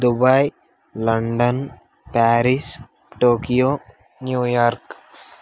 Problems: none marked